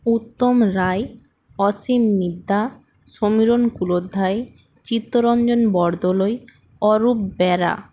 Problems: background sounds at intervals